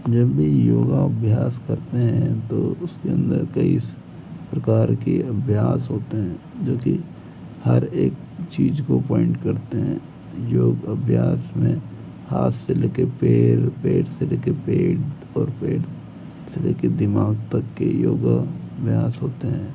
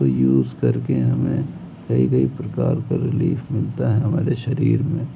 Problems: background sounds at intervals